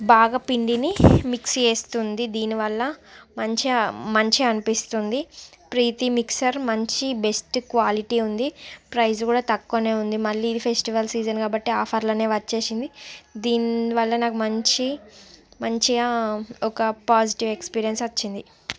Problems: background sounds at intervals